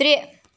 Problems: background sounds at intervals